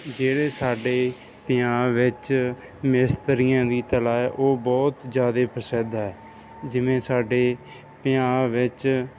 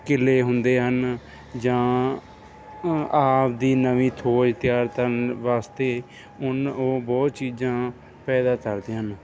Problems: none marked